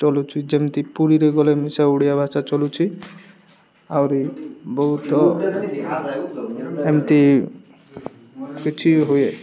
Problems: background sounds at intervals, background conversations at intervals